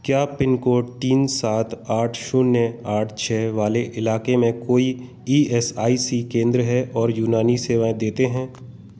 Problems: constant background noise